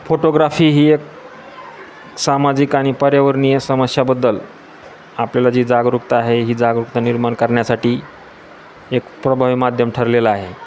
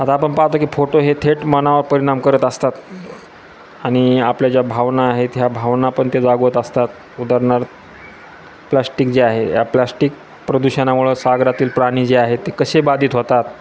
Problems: constant background noise, continuous background conversations